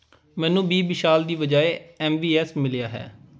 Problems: background conversations at intervals